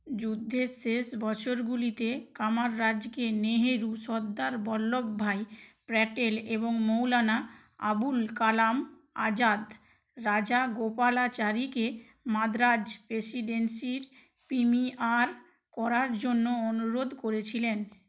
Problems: constant background noise